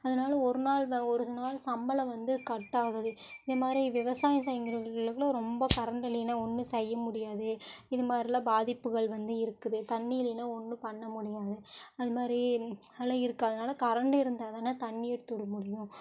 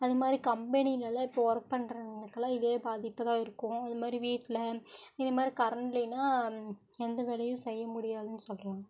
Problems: none marked